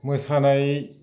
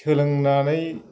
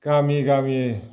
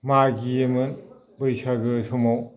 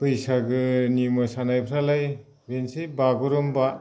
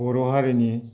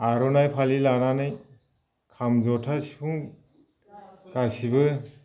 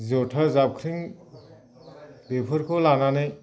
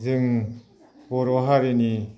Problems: constant background noise